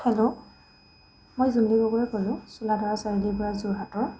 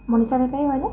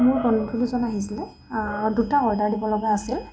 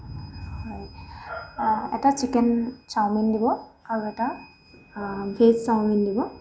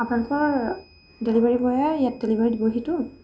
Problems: constant background noise